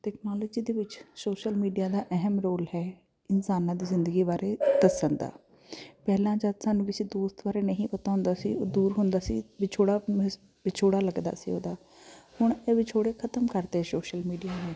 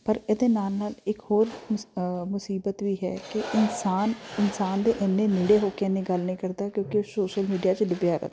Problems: constant background noise